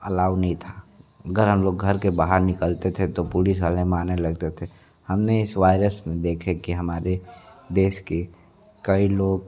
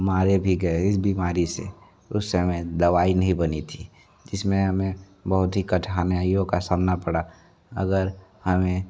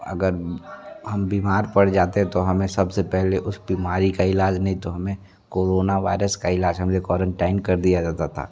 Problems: continuous background conversations